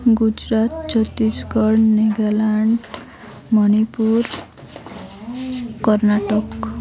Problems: constant background noise, continuous background conversations